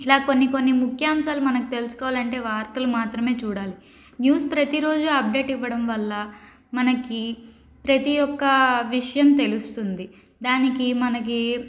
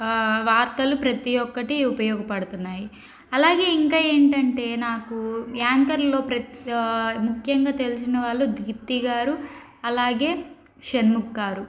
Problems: background conversations at intervals